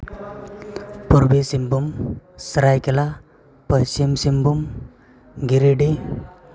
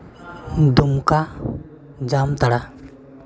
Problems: continuous background conversations